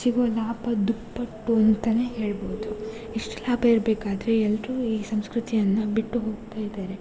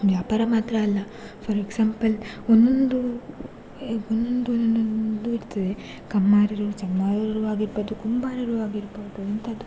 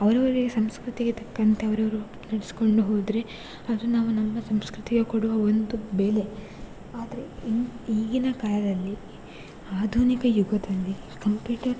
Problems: background sounds at intervals